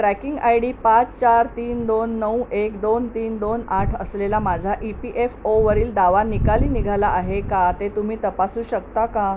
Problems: none marked